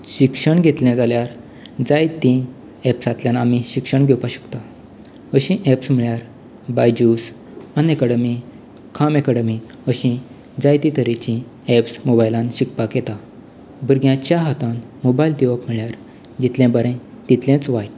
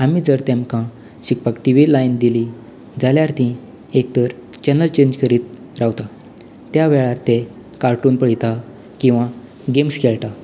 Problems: none marked